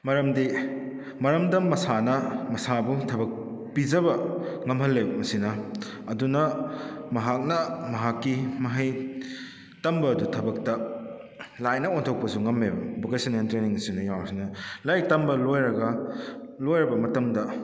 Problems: echo